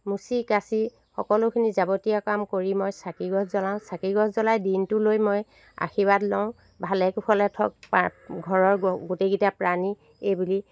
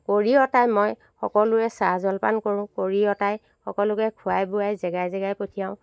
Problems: constant background noise